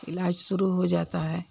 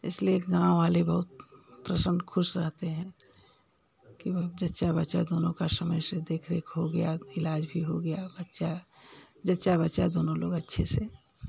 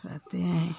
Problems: constant background noise